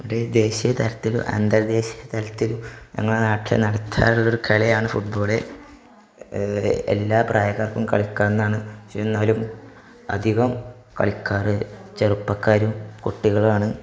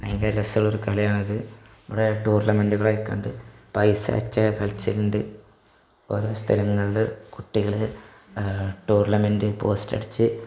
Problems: background sounds at intervals